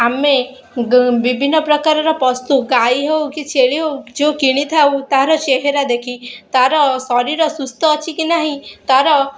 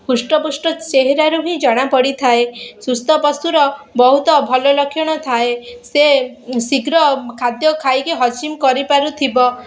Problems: none marked